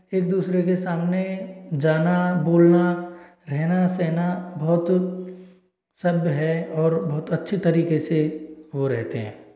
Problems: none marked